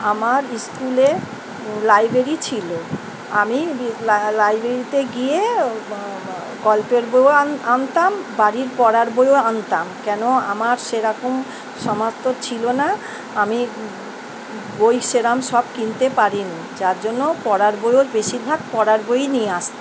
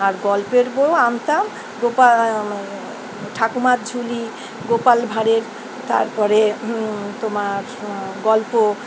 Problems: constant background noise